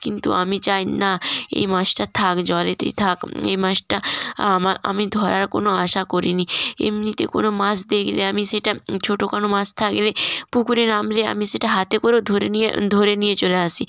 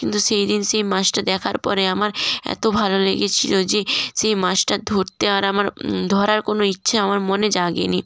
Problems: none marked